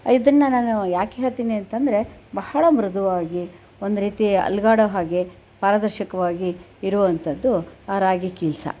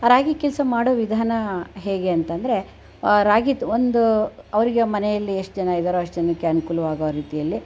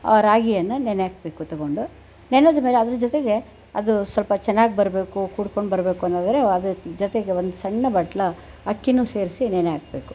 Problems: none marked